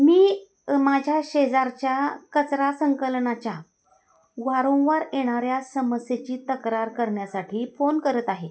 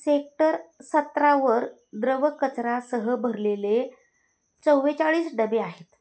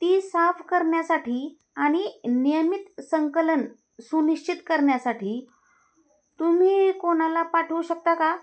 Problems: none marked